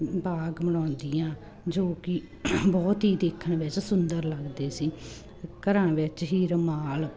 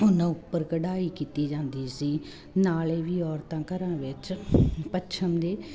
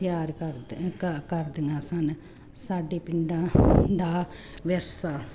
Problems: constant background noise